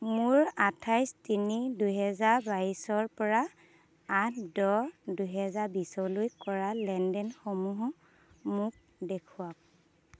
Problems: constant background noise